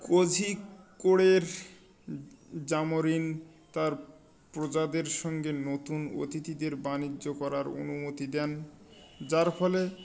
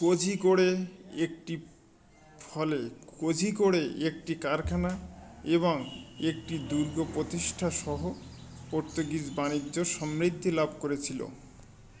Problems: constant background noise, continuous background conversations